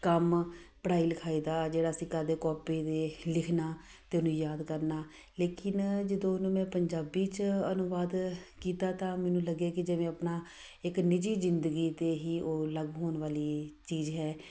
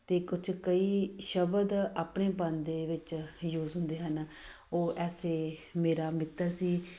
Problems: background sounds at intervals